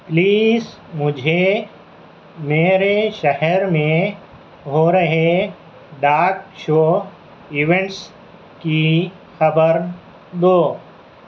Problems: none marked